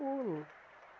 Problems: constant background noise